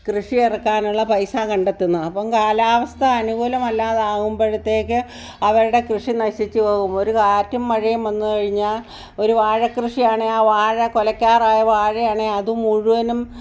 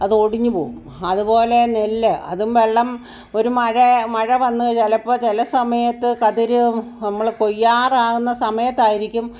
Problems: none marked